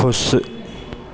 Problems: constant background noise